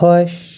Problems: none marked